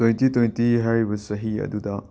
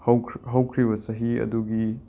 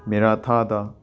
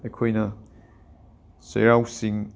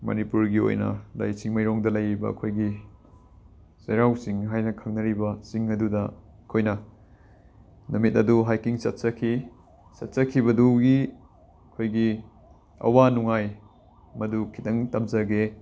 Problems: constant background noise